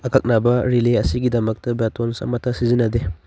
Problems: none marked